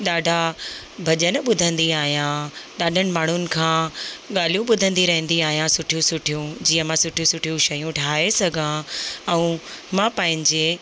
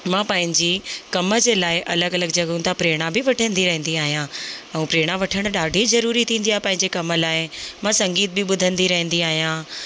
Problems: constant background noise